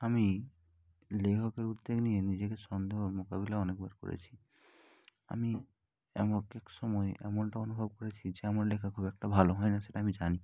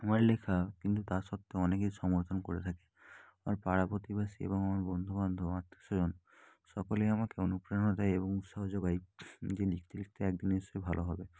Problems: background conversations at intervals